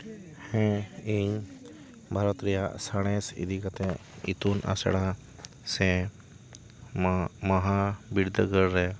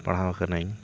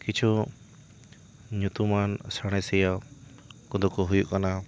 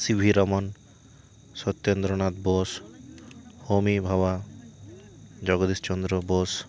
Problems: constant background noise